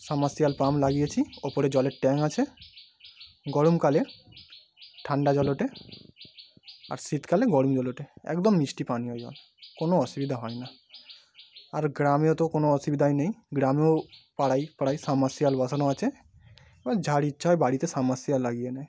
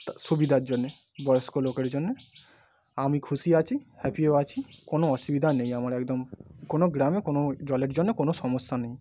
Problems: none marked